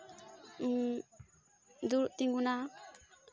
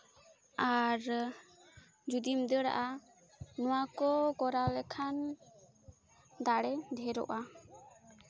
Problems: constant background noise, continuous background conversations